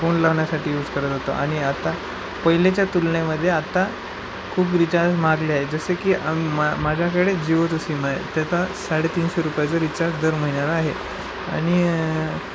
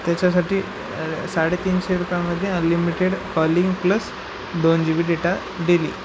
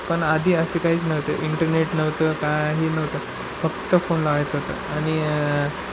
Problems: constant background noise